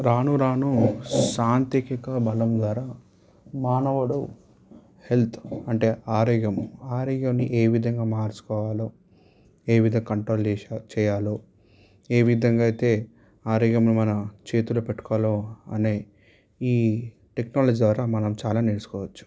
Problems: constant background noise